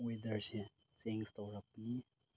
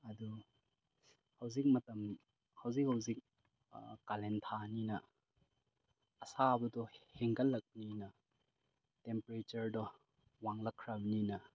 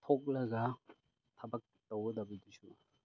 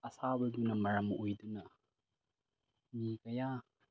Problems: low volume